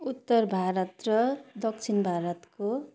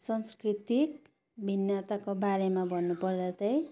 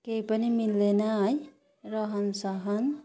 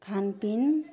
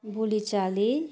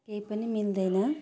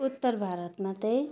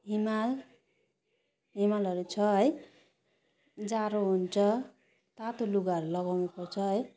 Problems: none marked